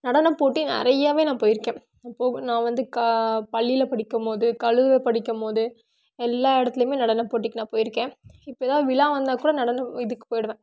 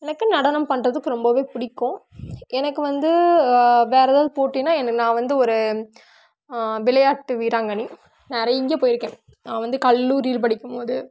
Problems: background sounds at intervals